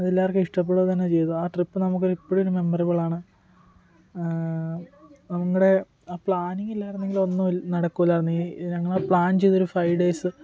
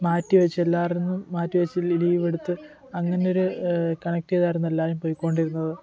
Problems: background conversations at intervals, low volume